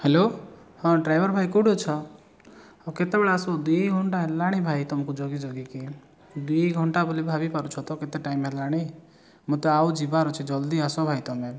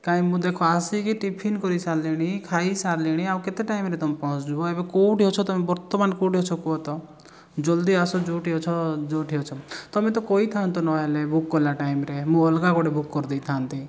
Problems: background sounds at intervals